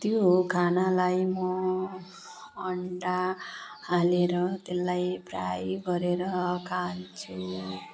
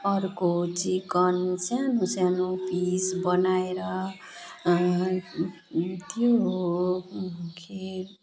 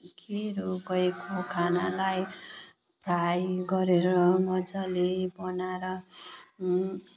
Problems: constant background noise